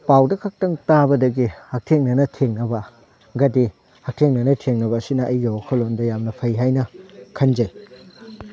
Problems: none marked